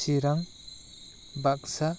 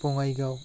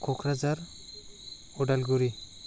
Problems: constant background noise